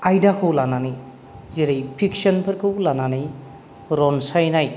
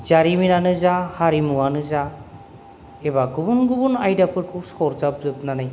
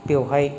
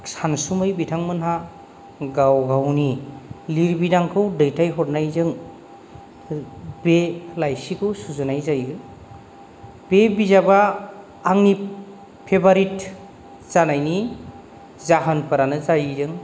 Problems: none marked